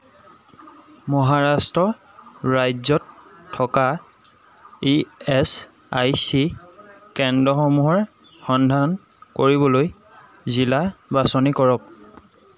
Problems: constant background noise, background conversations at intervals